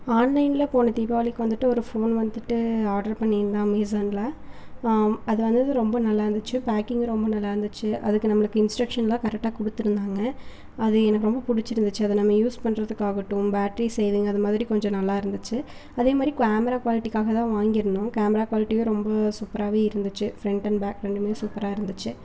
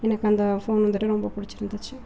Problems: none marked